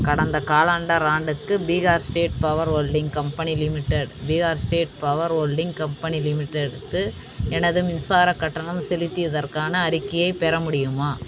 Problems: constant background noise, continuous background conversations